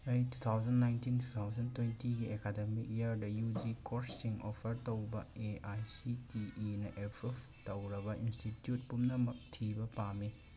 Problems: constant background noise